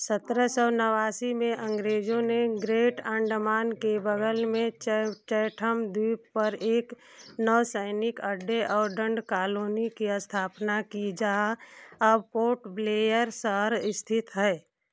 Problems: none marked